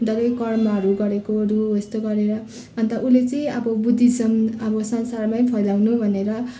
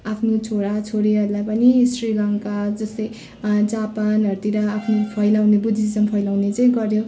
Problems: none marked